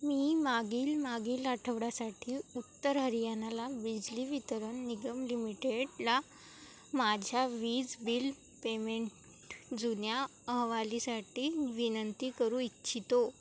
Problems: none marked